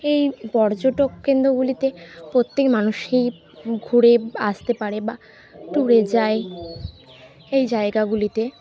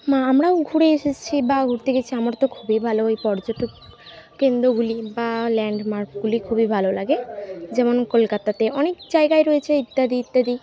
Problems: background sounds at intervals